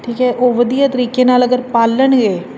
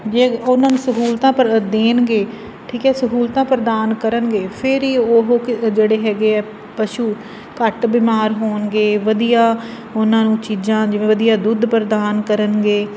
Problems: constant background noise